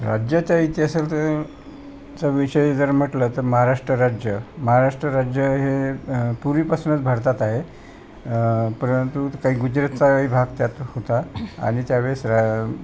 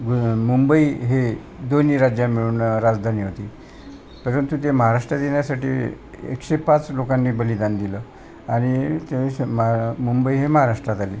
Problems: constant background noise, continuous background conversations